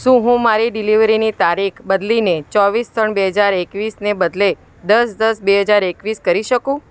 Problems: constant background noise